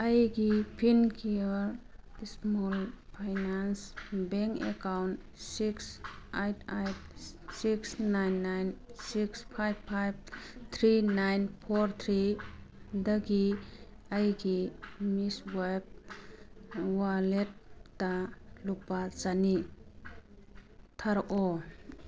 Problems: background conversations at intervals